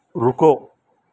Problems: none marked